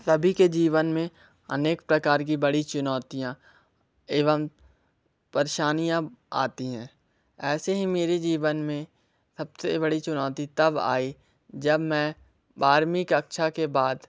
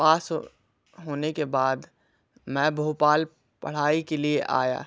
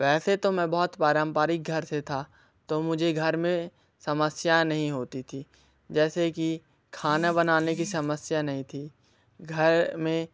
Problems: background sounds at intervals